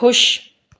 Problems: echo